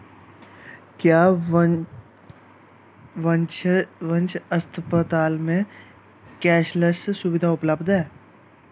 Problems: constant background noise